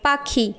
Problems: constant background noise